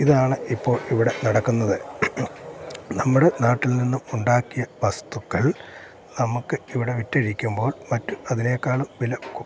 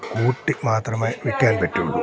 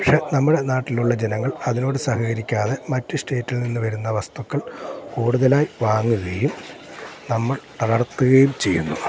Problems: constant background noise